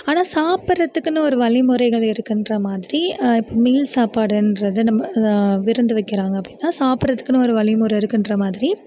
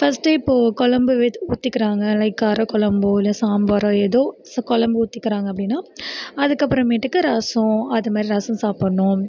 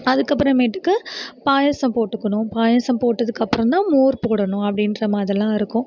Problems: none marked